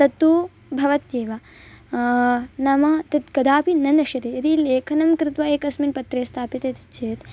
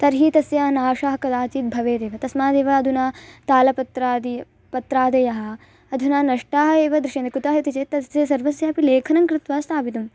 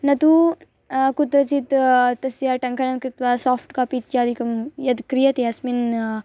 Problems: constant background noise